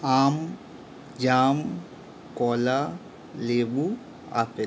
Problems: constant background noise